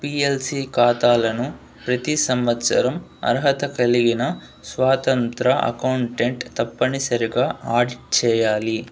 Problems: background sounds at intervals